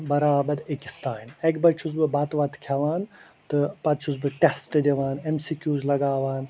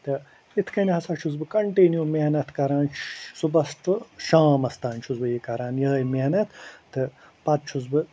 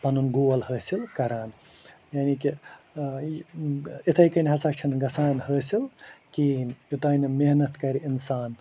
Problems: constant background noise